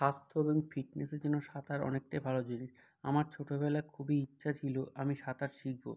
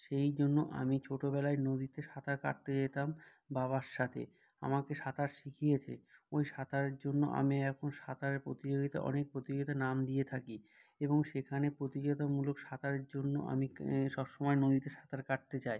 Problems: none marked